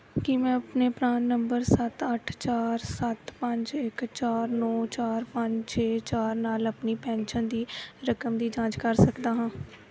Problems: background sounds at intervals